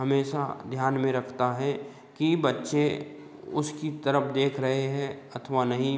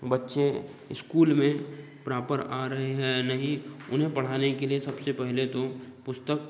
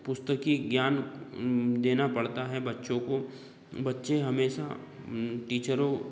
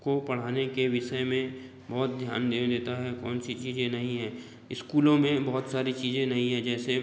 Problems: background sounds at intervals, background conversations at intervals